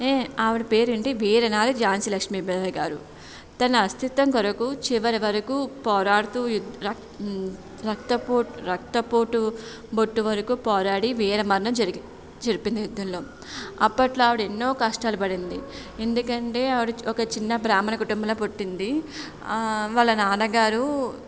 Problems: background sounds at intervals